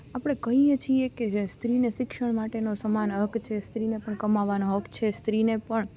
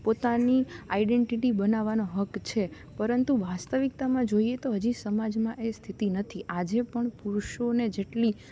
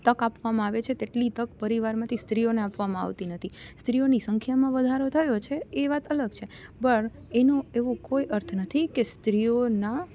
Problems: none marked